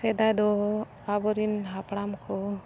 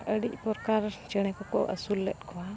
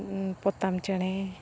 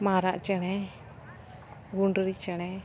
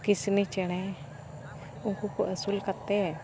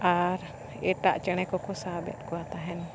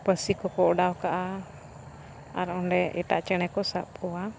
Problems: constant background noise